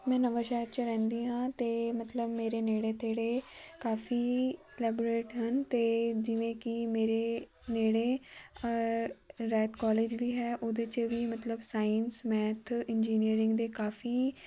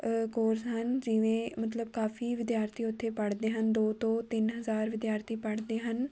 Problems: constant background noise, background conversations at intervals